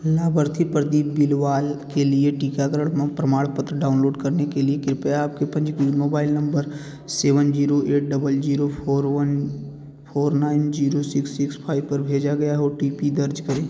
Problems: background sounds at intervals